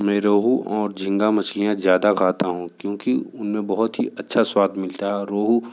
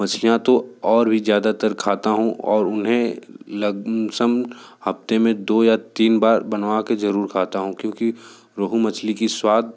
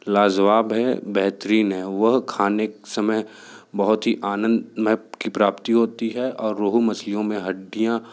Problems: background sounds at intervals